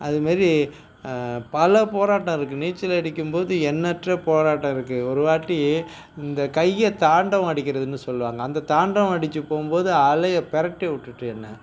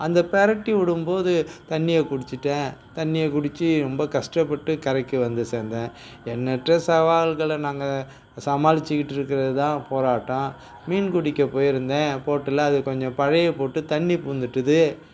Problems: none marked